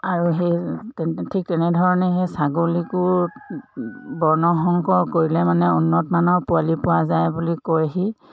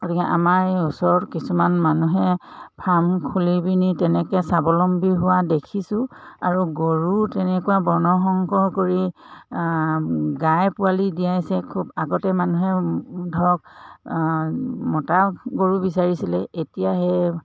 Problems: none marked